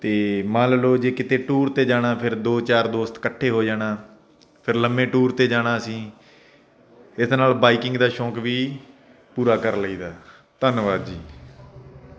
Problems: none marked